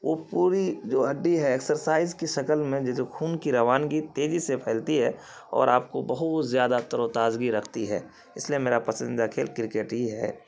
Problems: constant background noise